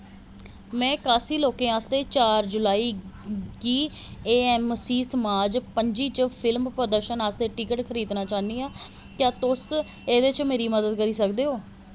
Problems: constant background noise